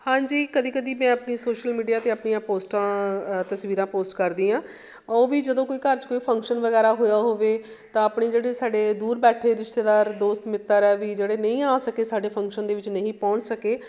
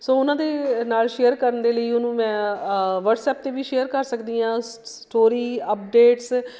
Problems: background sounds at intervals